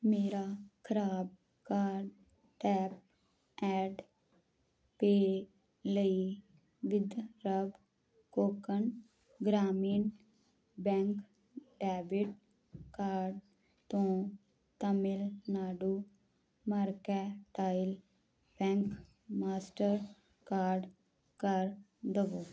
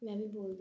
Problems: background conversations at intervals